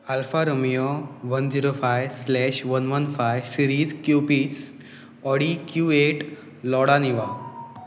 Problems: constant background noise